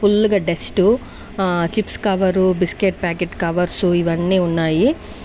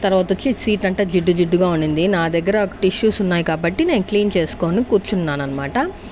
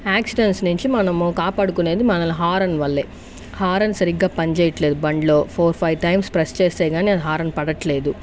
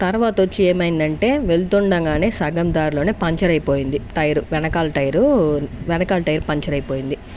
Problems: constant background noise